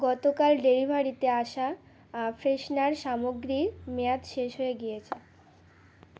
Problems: constant background noise